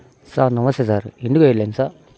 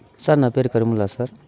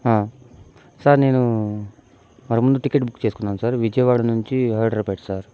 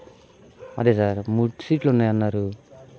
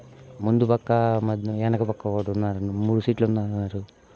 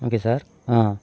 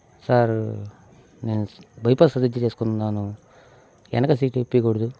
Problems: background sounds at intervals